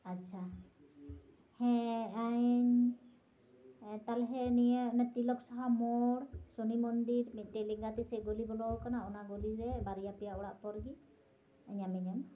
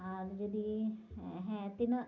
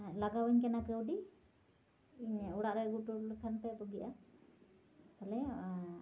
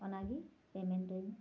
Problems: background sounds at intervals